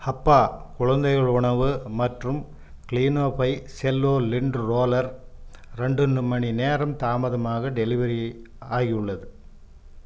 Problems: none marked